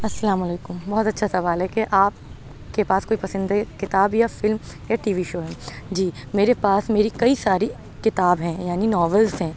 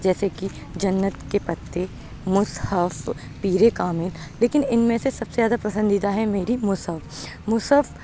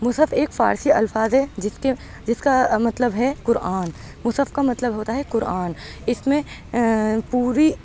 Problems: background sounds at intervals